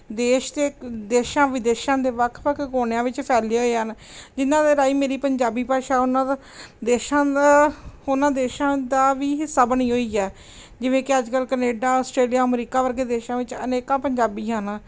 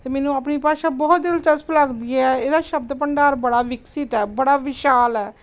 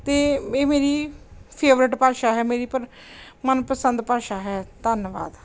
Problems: none marked